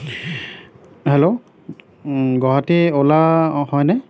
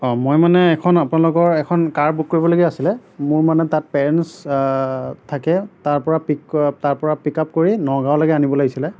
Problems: none marked